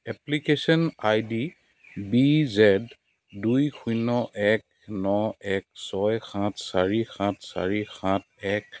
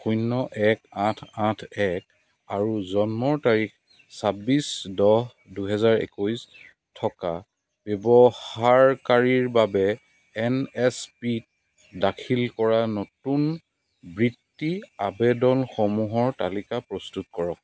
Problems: none marked